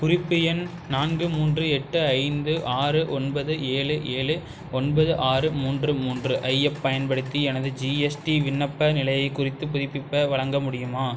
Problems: constant background noise